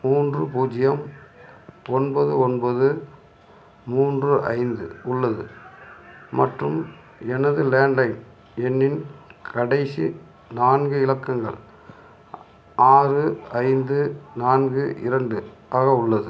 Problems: none marked